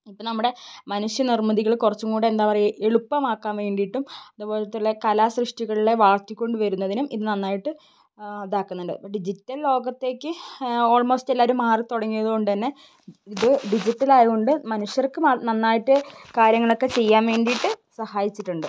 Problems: background sounds at intervals